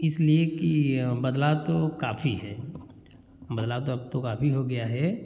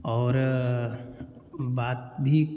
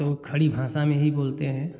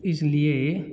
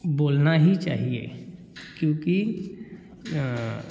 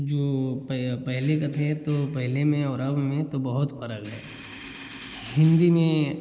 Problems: none marked